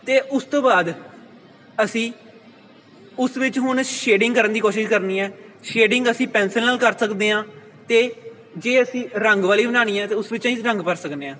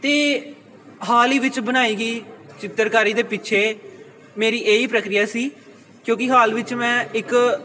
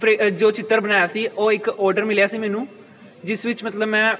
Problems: constant background noise